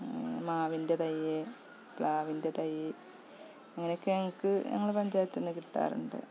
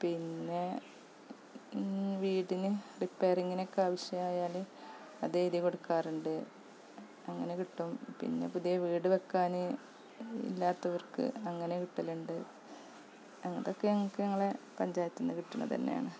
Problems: background sounds at intervals, low volume